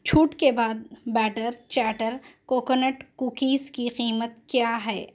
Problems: none marked